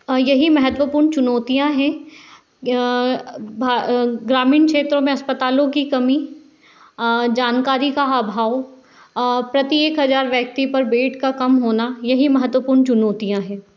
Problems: none marked